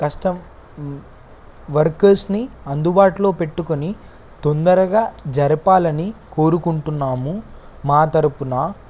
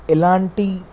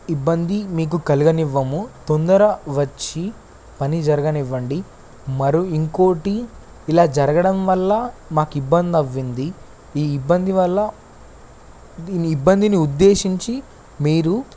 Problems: constant background noise